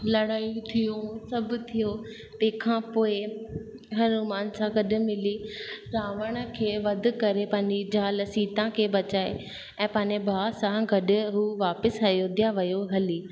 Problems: constant background noise, echo